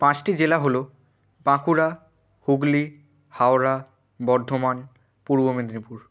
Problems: none marked